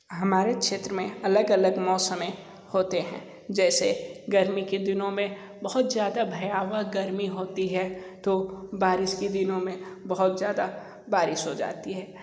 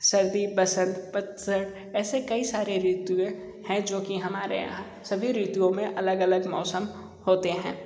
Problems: background sounds at intervals